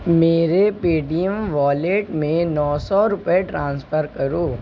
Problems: none marked